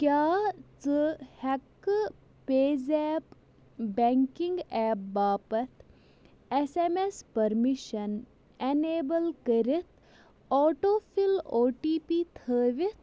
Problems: constant background noise